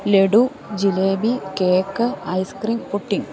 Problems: continuous background conversations